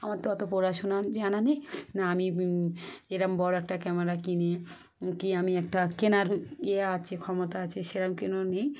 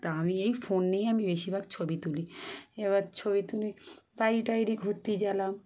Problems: none marked